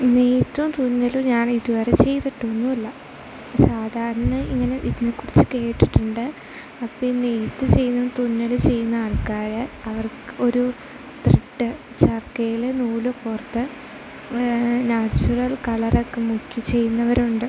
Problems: constant background noise, low volume